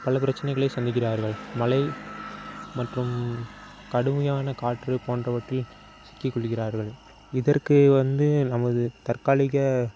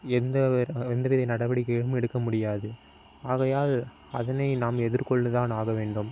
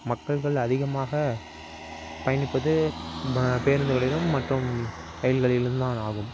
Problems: constant background noise